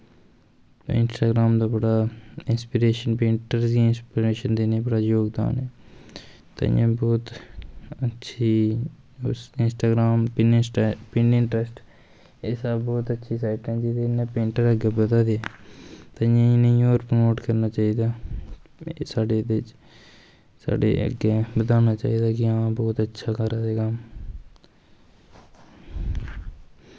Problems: constant background noise